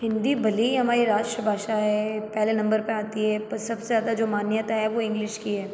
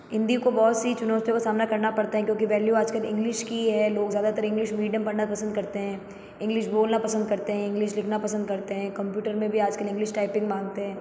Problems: constant background noise, echo